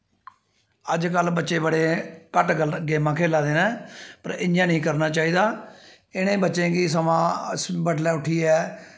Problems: echo